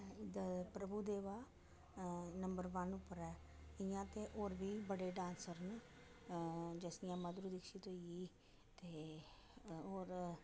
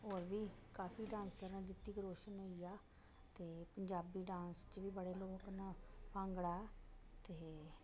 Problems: echo, low volume